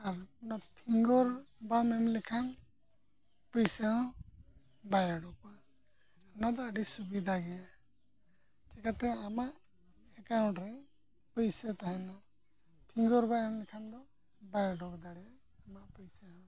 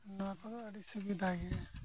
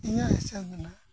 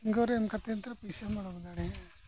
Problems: low volume